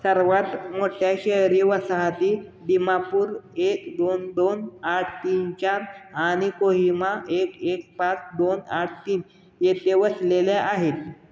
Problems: constant background noise